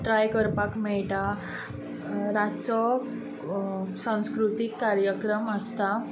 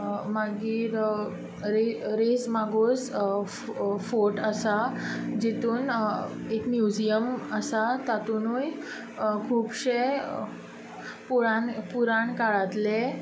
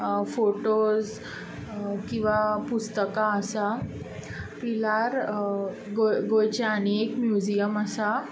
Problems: constant background noise